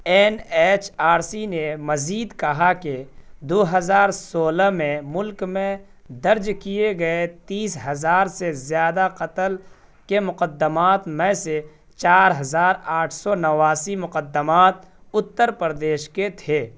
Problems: none marked